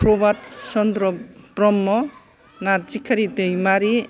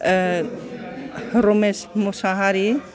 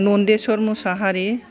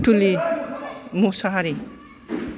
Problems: background sounds at intervals, background conversations at intervals